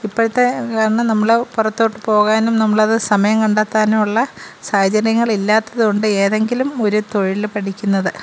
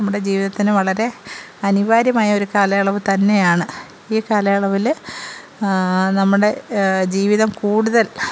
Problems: none marked